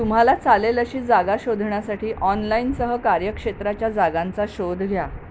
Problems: constant background noise